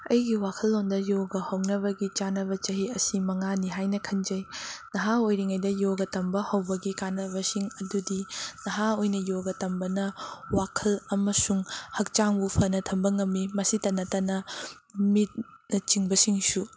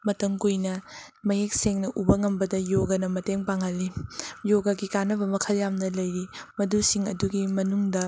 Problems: constant background noise